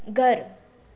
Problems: constant background noise, echo